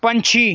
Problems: background sounds at intervals